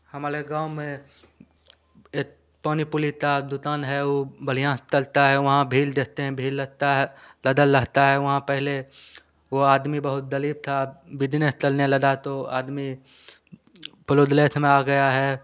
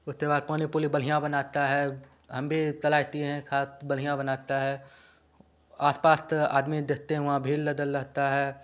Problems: none marked